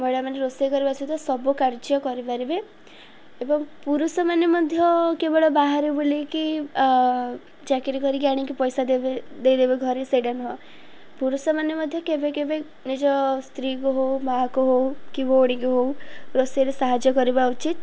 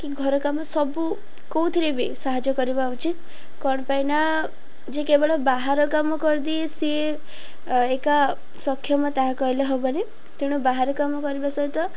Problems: none marked